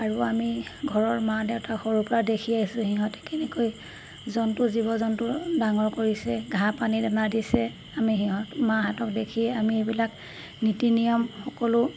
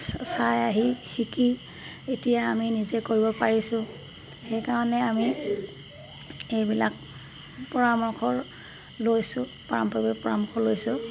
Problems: background sounds at intervals